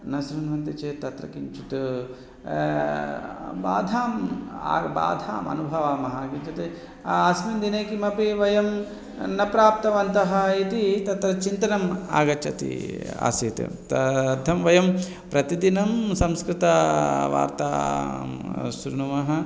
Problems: none marked